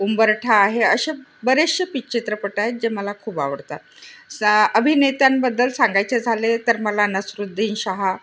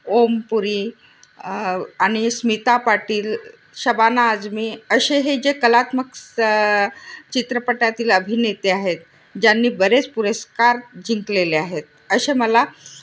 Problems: constant background noise, background conversations at intervals